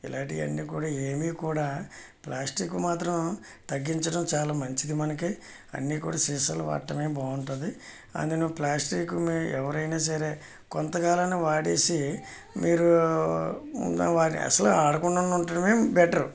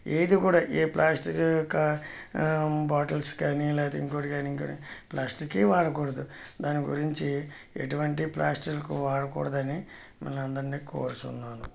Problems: background sounds at intervals